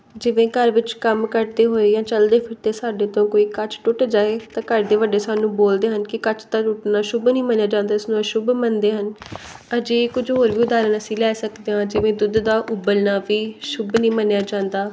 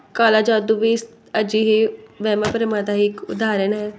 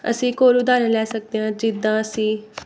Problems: none marked